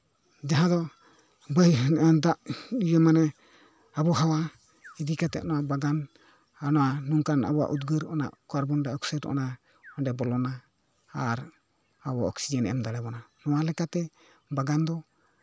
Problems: background sounds at intervals, background conversations at intervals